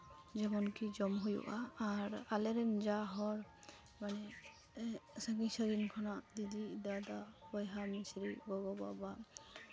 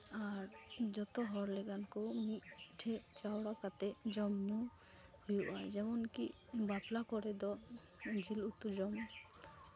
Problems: constant background noise